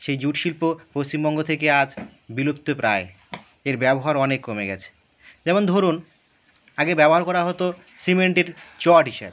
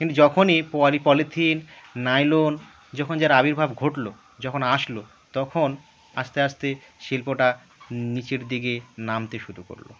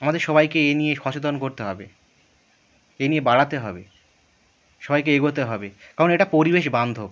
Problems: none marked